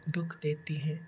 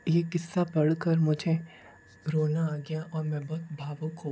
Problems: background sounds at intervals